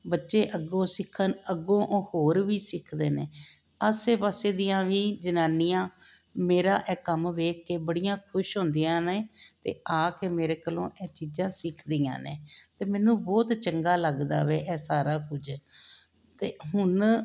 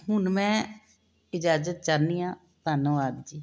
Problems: none marked